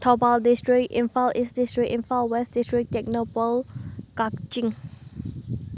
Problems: background sounds at intervals